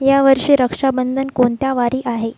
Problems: background sounds at intervals